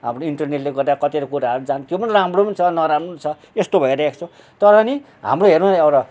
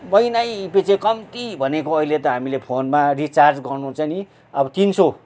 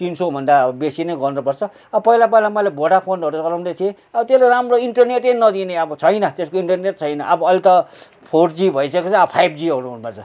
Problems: none marked